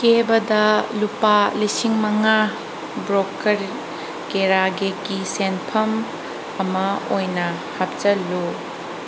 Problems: constant background noise